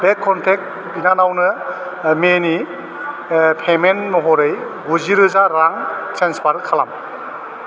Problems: none marked